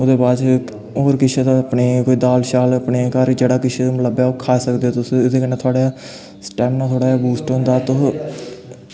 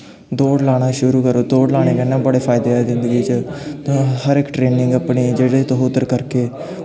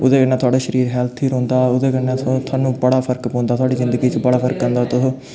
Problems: constant background noise, background conversations at intervals